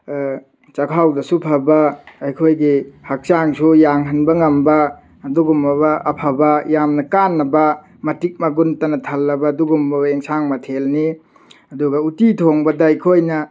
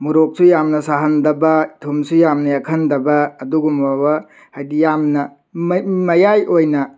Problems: none marked